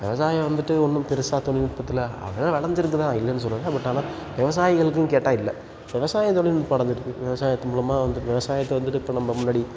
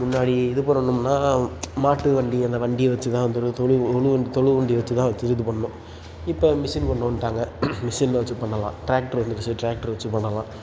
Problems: background sounds at intervals